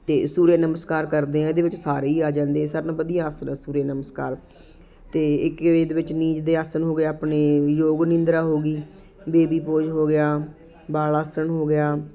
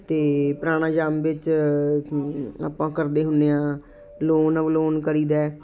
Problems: constant background noise